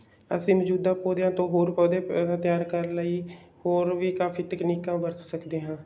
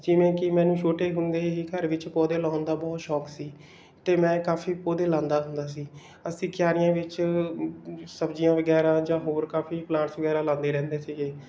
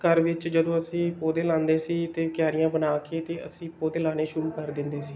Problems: none marked